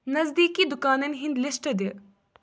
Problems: background sounds at intervals